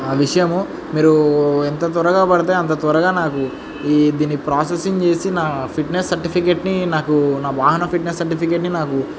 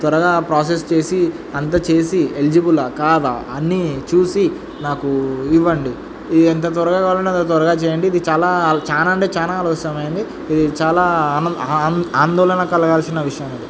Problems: constant background noise